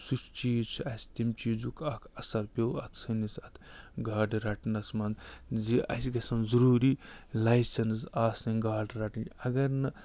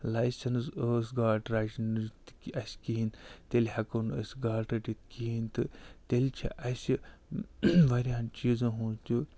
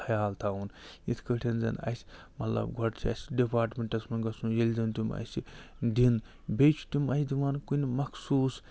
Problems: none marked